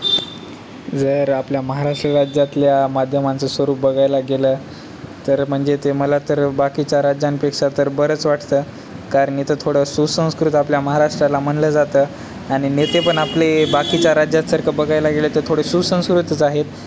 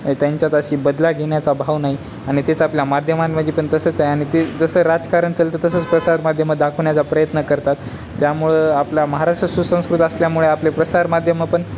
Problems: constant background noise, background conversations at intervals